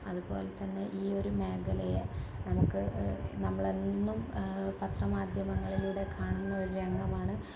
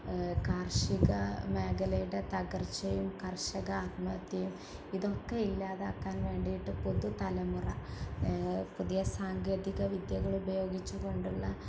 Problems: constant background noise, low volume